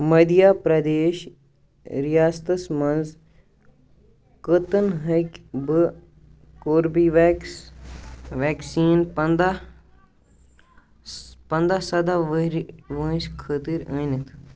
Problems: background sounds at intervals, background conversations at intervals